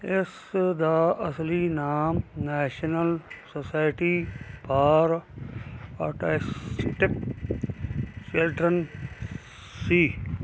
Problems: constant background noise